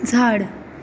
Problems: constant background noise